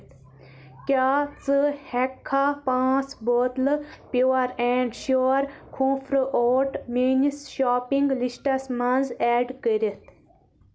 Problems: constant background noise